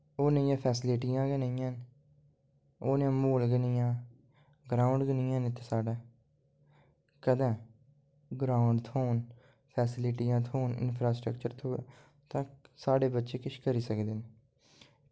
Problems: low volume